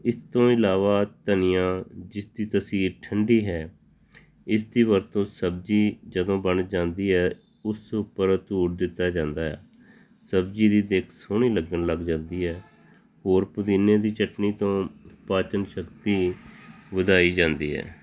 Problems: constant background noise